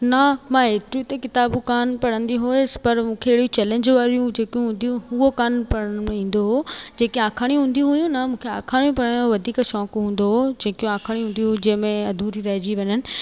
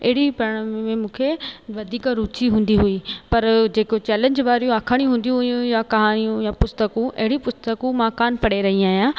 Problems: constant background noise, echo